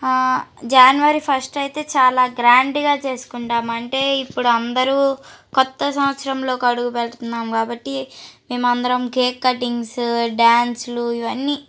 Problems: background sounds at intervals